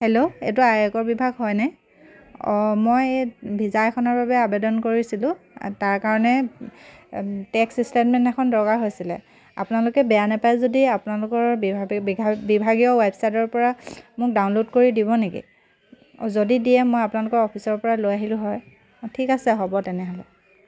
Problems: constant background noise